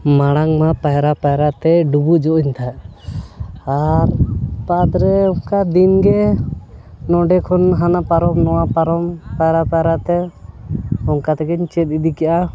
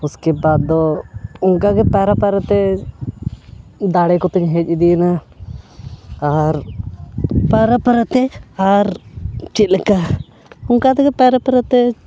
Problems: constant background noise